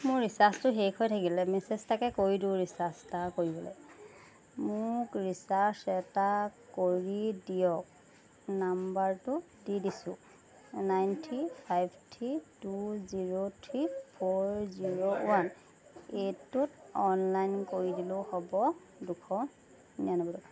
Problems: background sounds at intervals